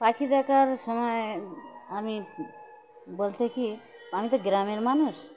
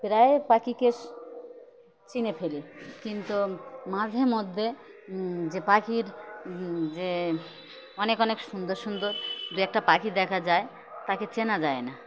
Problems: constant background noise